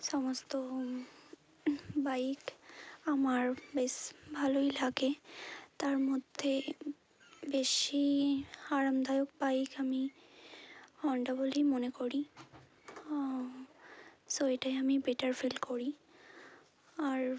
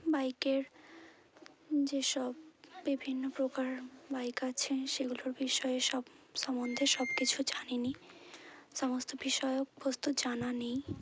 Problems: none marked